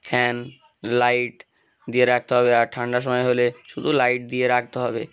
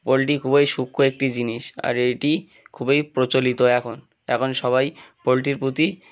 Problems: none marked